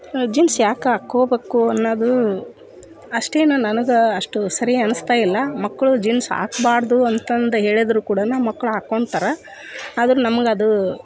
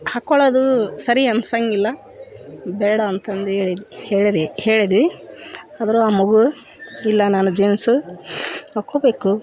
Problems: background conversations at intervals